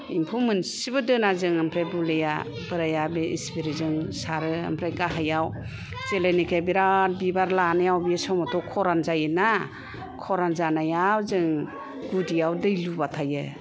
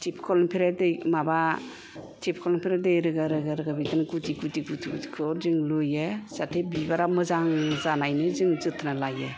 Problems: none marked